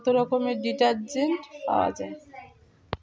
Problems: continuous background conversations